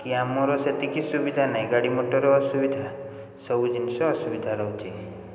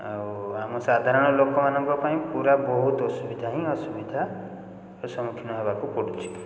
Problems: constant background noise